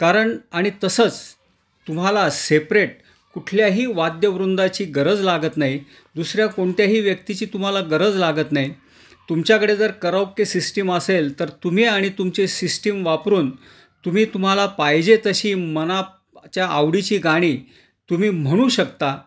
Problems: none marked